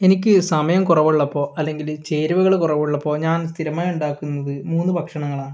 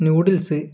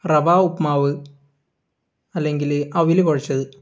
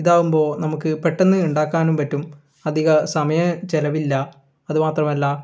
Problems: none marked